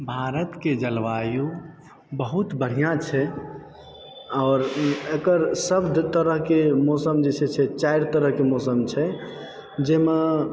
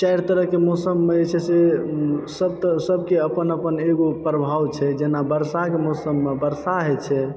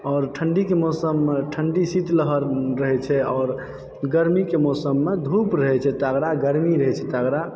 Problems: background sounds at intervals